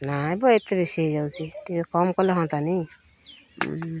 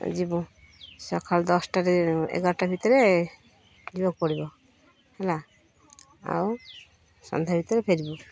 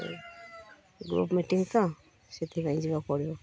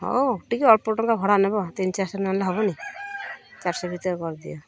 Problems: constant background noise